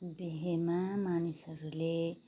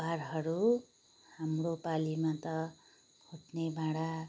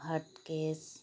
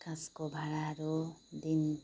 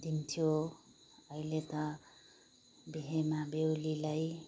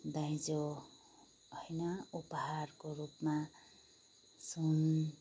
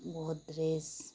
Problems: background sounds at intervals